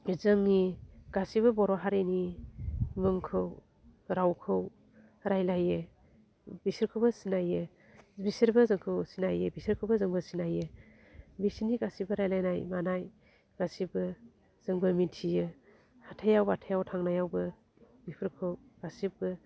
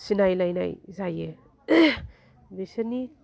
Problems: none marked